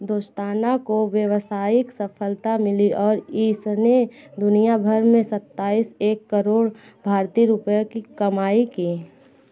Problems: background sounds at intervals, continuous background conversations